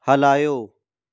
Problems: none marked